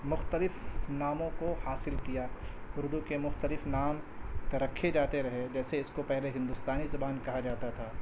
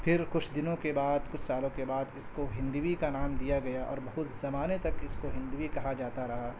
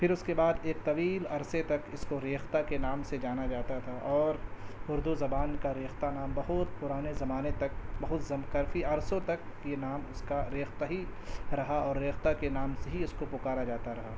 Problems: constant background noise